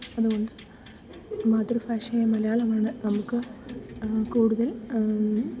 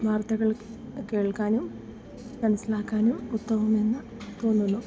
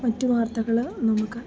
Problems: background sounds at intervals, low volume